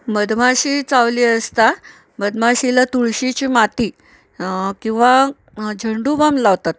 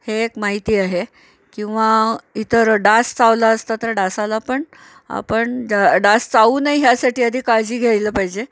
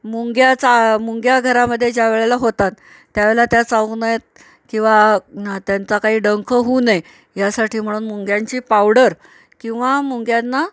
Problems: none marked